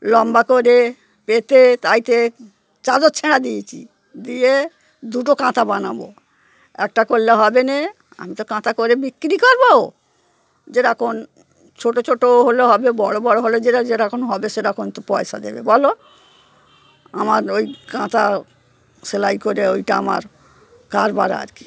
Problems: constant background noise